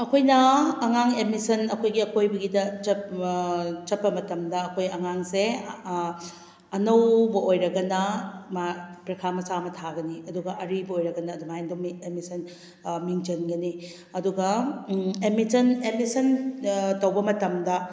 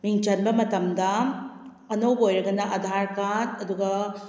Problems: none marked